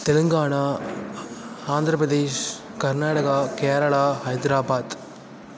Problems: constant background noise